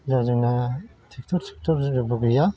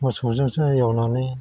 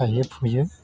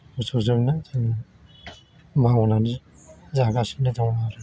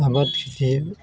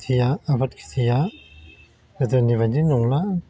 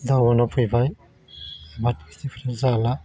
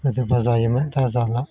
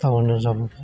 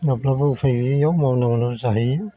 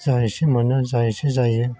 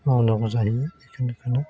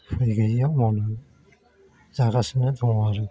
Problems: constant background noise